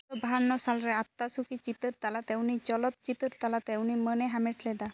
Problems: none marked